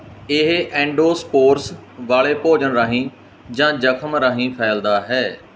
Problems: none marked